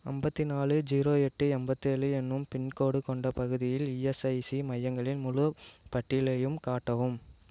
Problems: none marked